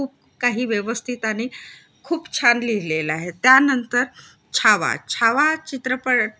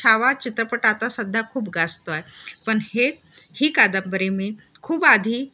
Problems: constant background noise